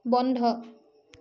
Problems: none marked